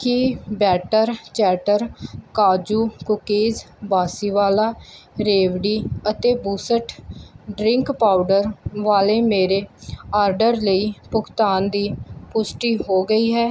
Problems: background sounds at intervals